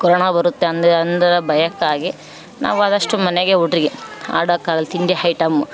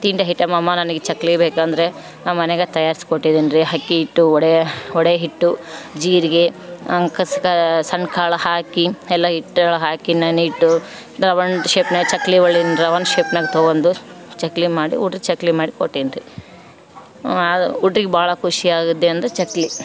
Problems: background sounds at intervals